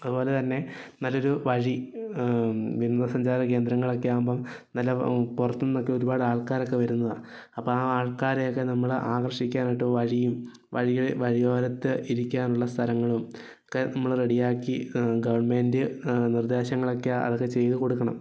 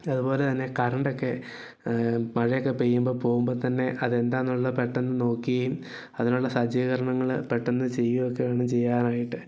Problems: none marked